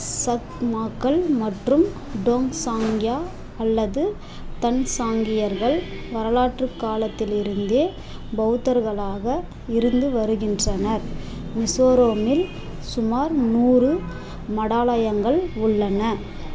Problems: constant background noise